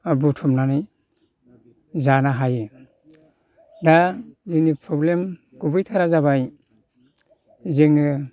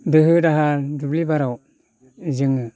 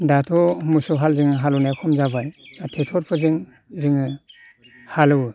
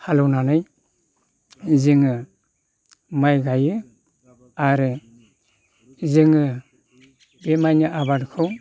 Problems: none marked